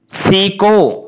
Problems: none marked